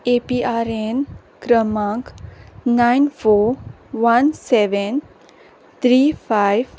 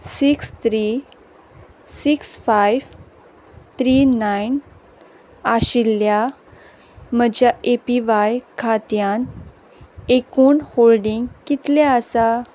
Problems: background sounds at intervals